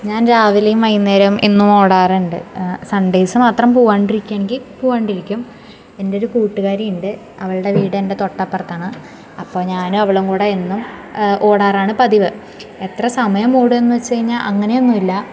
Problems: background sounds at intervals